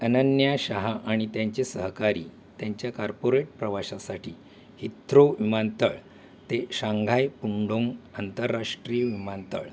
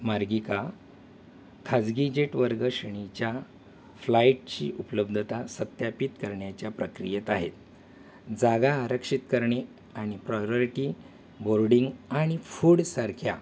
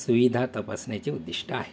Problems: none marked